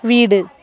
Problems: background conversations at intervals